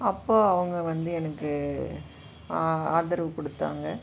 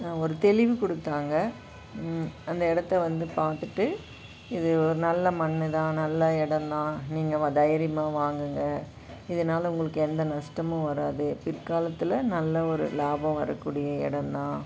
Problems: constant background noise